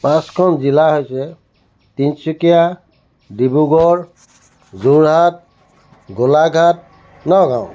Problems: constant background noise